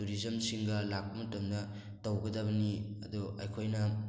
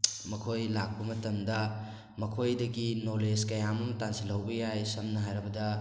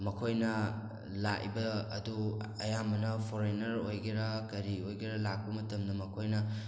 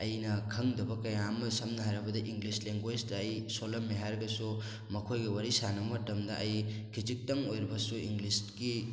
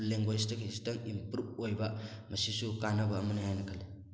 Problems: none marked